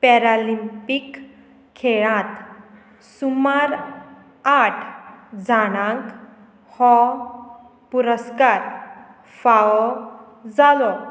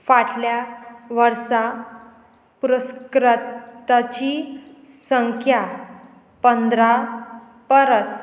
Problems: constant background noise